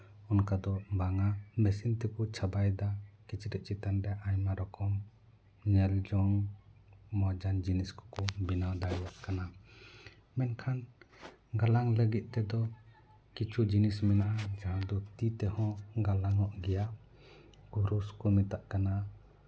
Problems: none marked